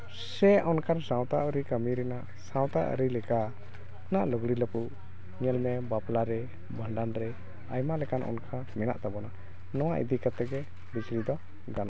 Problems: background sounds at intervals, background conversations at intervals